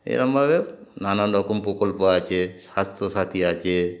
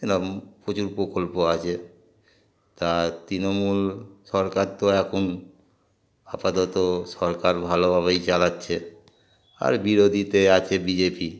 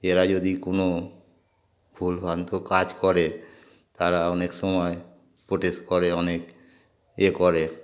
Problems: constant background noise, background conversations at intervals